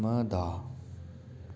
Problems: constant background noise